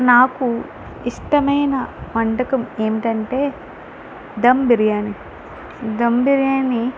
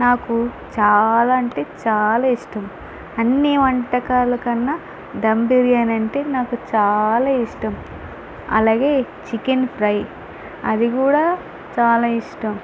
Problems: constant background noise